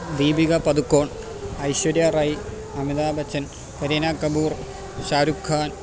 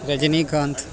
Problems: none marked